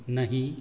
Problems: none marked